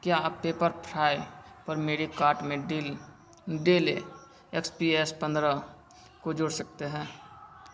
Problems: none marked